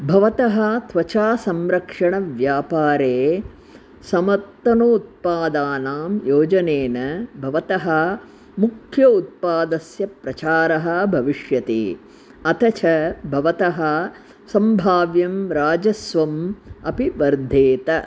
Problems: none marked